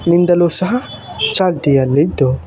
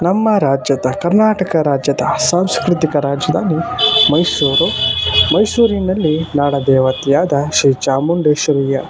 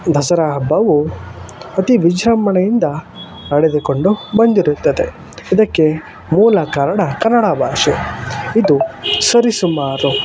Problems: constant background noise